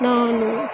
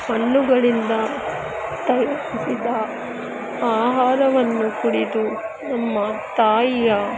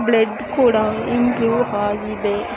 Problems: constant background noise, continuous background conversations